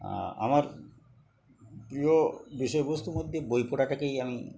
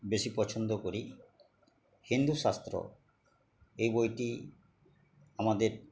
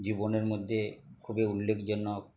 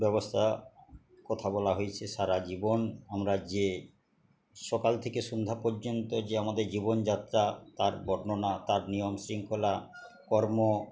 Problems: constant background noise, continuous background conversations